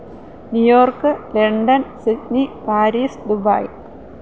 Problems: none marked